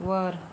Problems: constant background noise